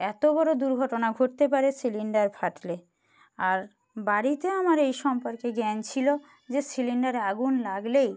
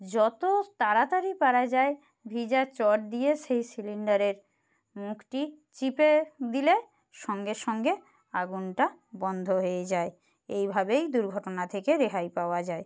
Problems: background sounds at intervals